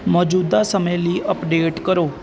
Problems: constant background noise